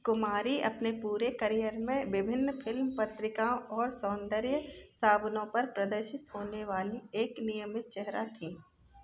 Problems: background sounds at intervals, background conversations at intervals